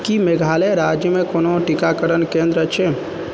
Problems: constant background noise